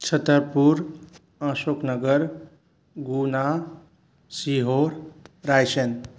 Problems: constant background noise